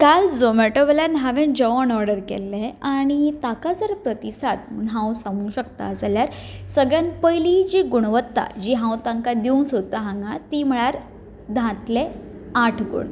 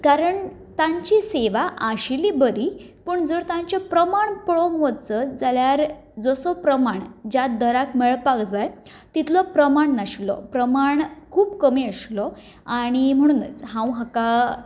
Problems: background sounds at intervals